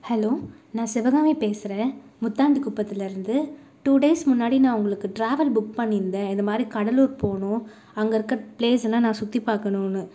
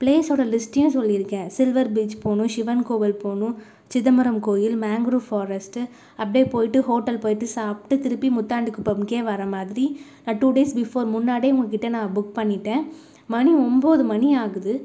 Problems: none marked